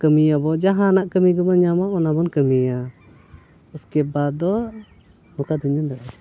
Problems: background sounds at intervals